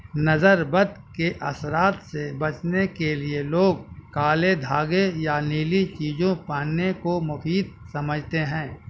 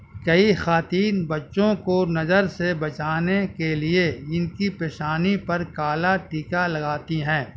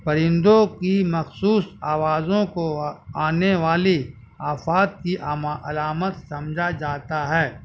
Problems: constant background noise, low volume